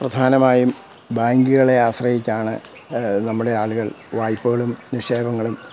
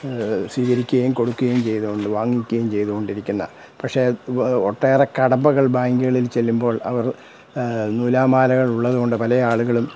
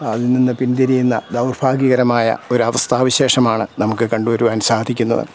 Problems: none marked